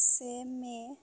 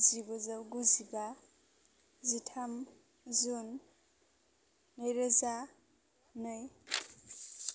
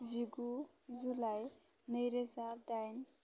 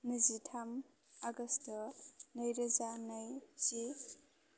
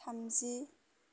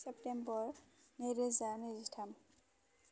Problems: none marked